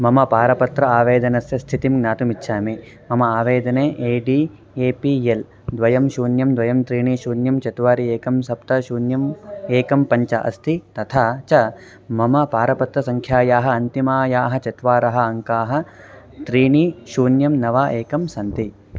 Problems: none marked